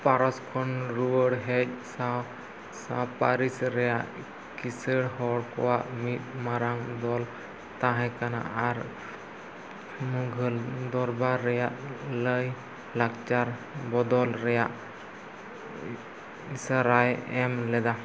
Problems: constant background noise, low volume